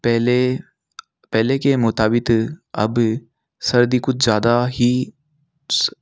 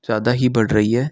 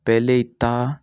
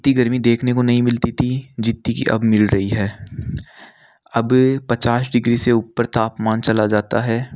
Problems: background sounds at intervals